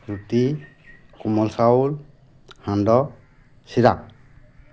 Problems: constant background noise